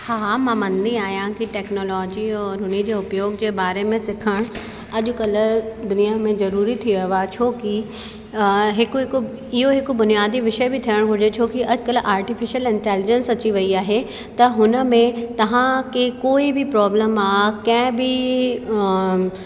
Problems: constant background noise, echo